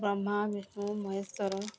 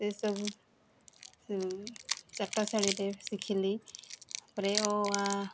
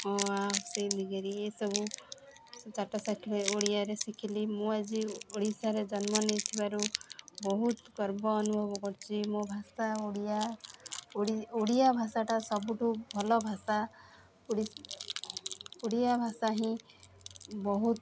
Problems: constant background noise